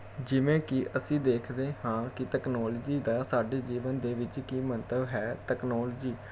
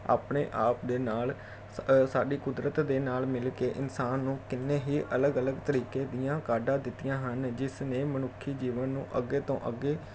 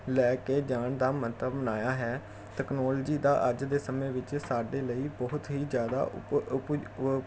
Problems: none marked